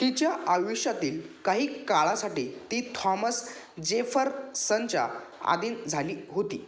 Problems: none marked